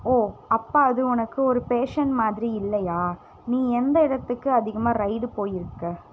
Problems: constant background noise